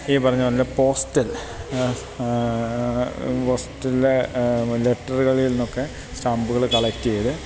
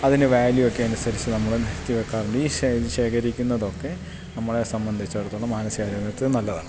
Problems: constant background noise